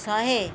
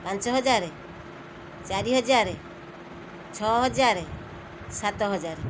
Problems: constant background noise